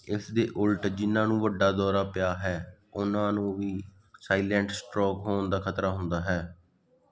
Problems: none marked